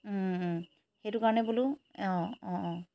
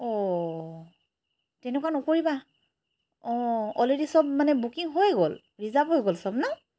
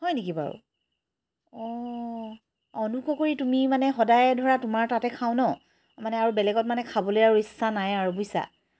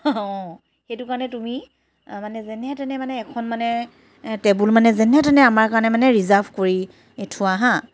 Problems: constant background noise